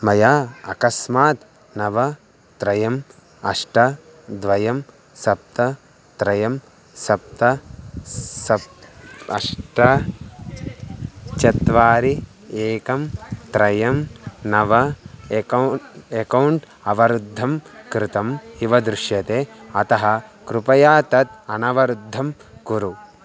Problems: constant background noise